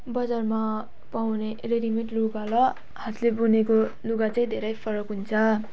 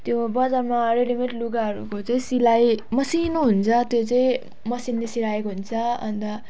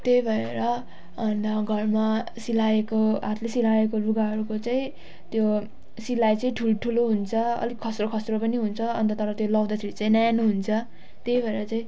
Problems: background sounds at intervals